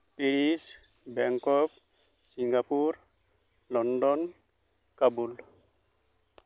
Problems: none marked